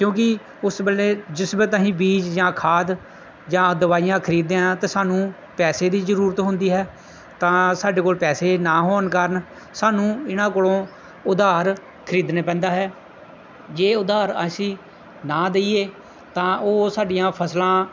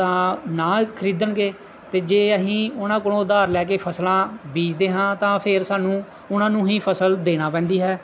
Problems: background sounds at intervals